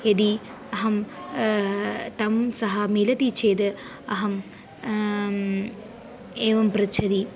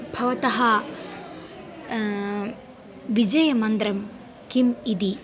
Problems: constant background noise